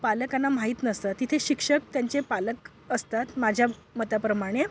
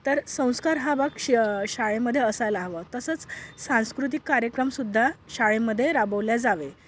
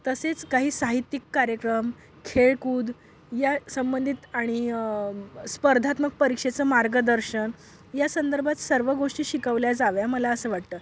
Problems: background sounds at intervals